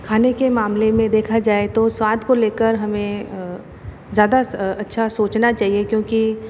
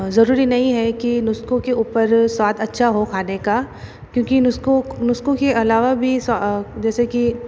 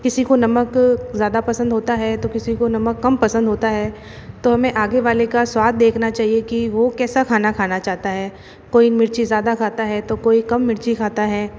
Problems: none marked